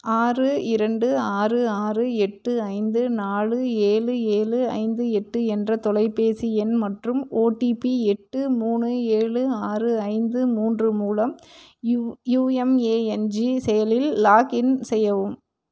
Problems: none marked